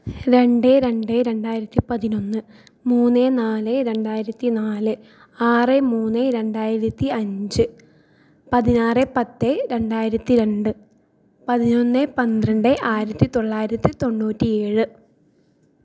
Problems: none marked